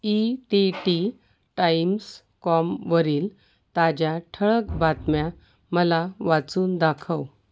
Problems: constant background noise